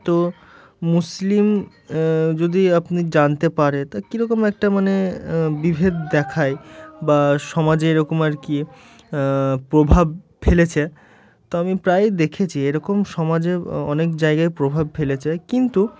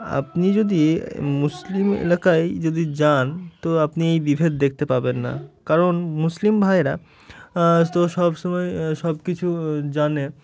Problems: background sounds at intervals, background conversations at intervals